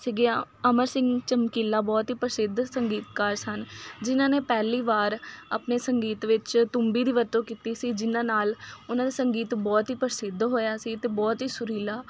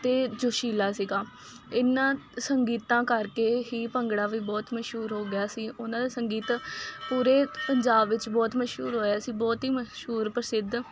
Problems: constant background noise